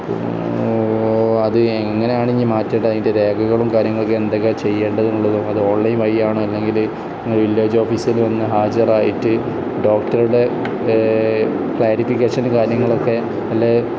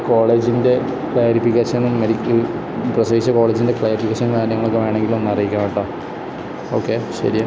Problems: constant background noise